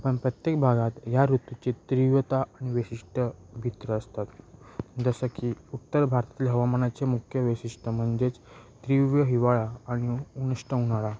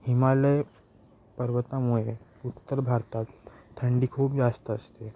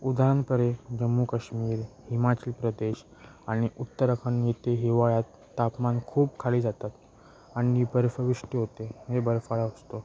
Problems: constant background noise